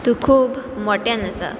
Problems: background sounds at intervals